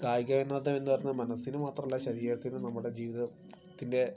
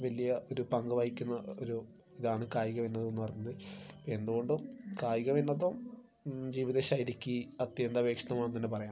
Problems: constant background noise